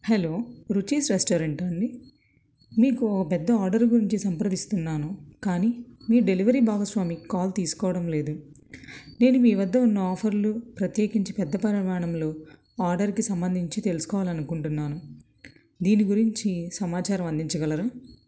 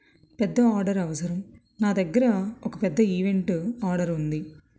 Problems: none marked